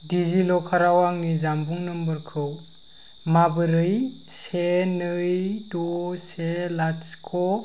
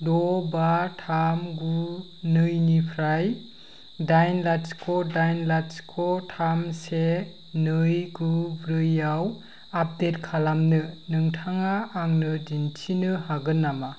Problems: constant background noise